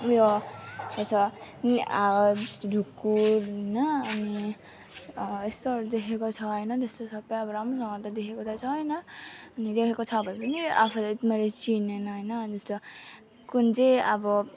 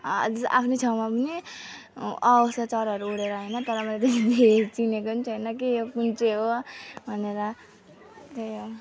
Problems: constant background noise